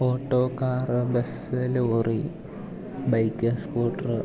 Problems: low volume